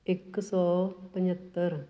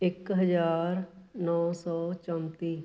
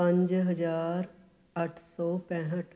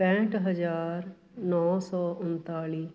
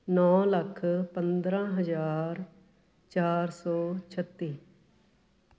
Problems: background conversations at intervals